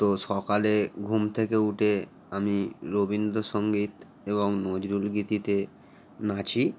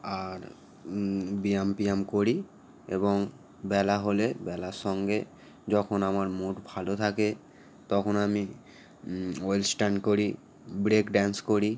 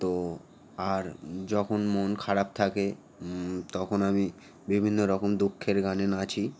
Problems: constant background noise